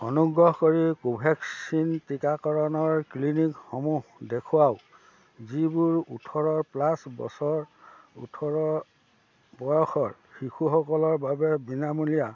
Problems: constant background noise, background conversations at intervals